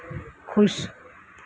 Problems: low volume